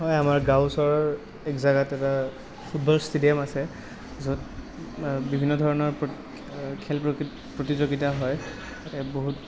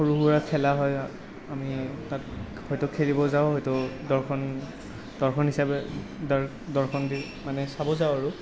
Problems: none marked